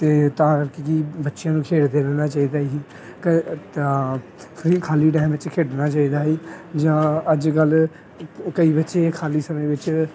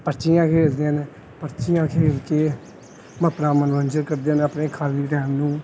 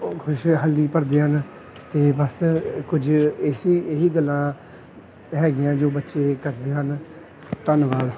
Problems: none marked